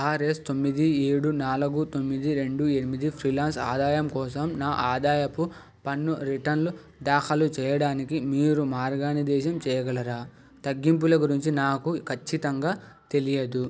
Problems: background sounds at intervals